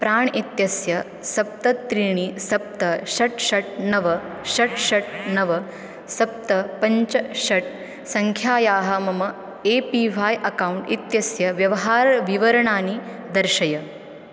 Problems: constant background noise